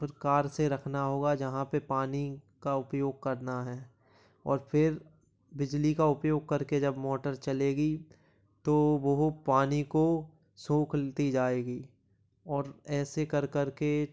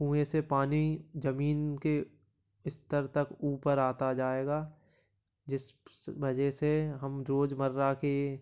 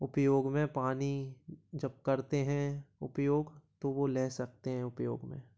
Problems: background sounds at intervals, low volume